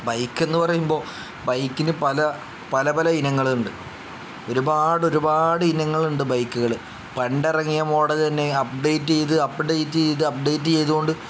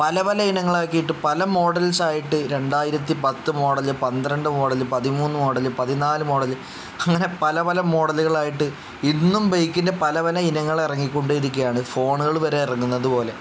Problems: none marked